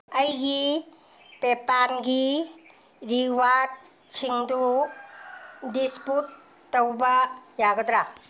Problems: background sounds at intervals